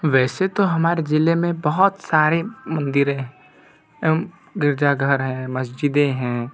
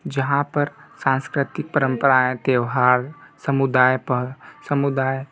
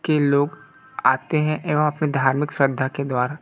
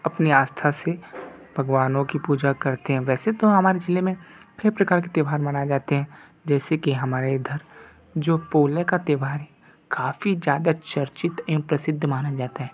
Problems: background sounds at intervals